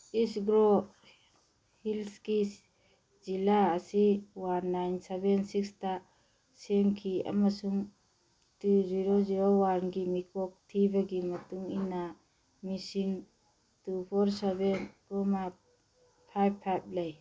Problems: background sounds at intervals